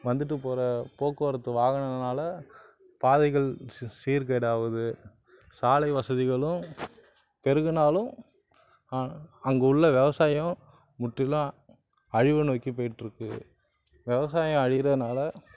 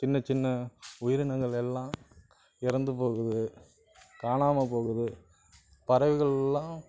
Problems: none marked